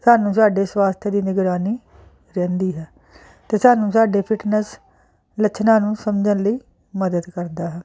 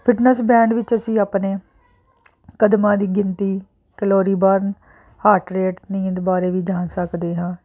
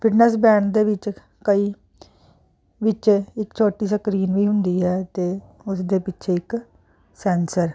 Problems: constant background noise